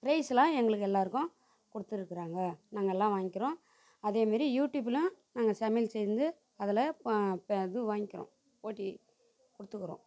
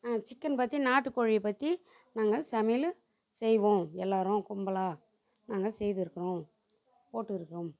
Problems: background sounds at intervals, background conversations at intervals